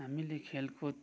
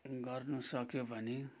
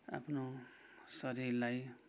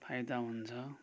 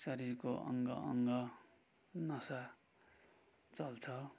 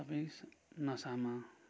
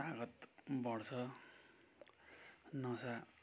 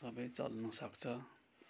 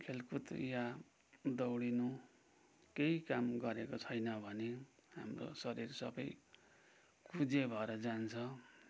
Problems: background sounds at intervals